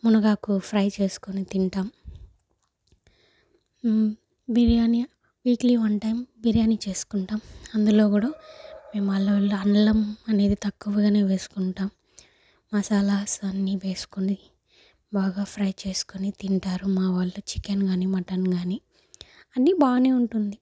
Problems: none marked